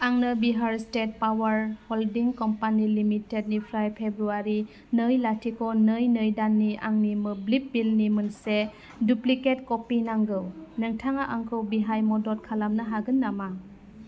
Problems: constant background noise